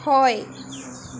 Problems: constant background noise